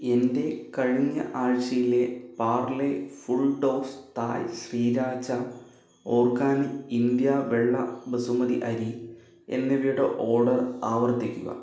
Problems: none marked